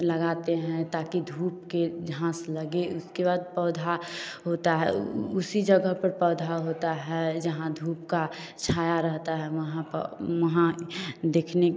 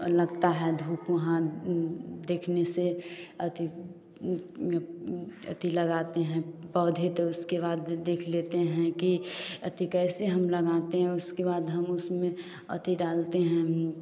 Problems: none marked